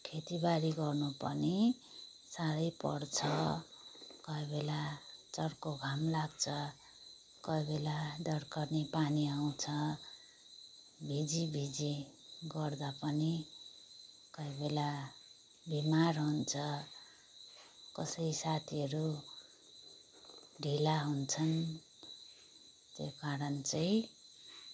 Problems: background sounds at intervals